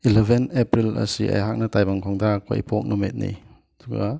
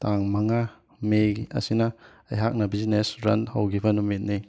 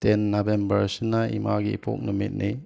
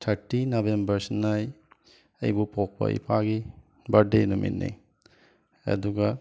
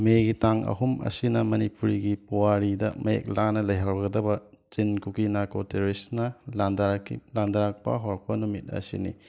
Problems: background sounds at intervals